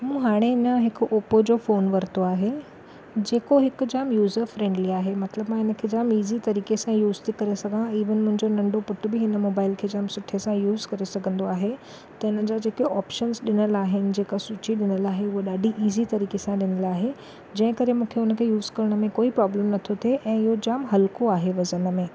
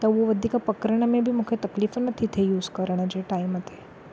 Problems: none marked